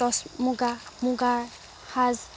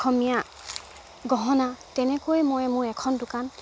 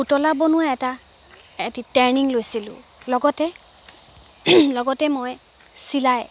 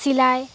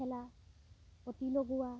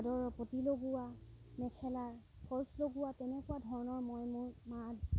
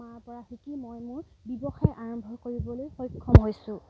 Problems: background sounds at intervals